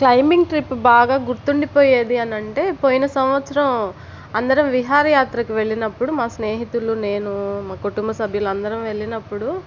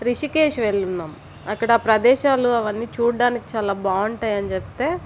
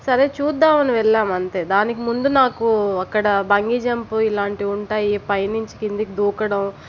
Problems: constant background noise